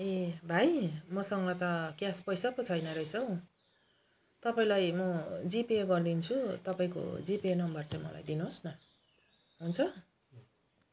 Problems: none marked